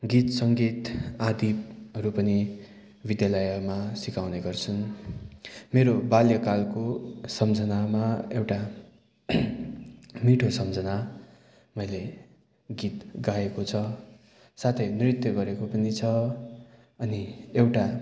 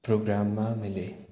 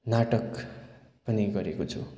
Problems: background sounds at intervals